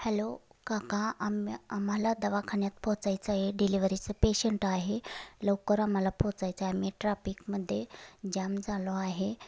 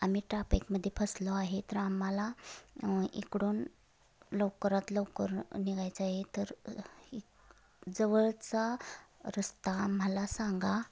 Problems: background sounds at intervals